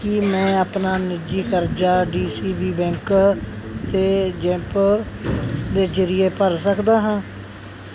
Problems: constant background noise